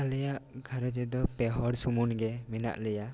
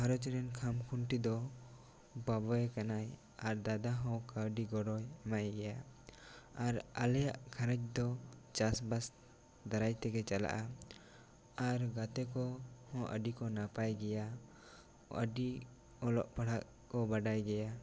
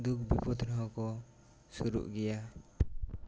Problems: none marked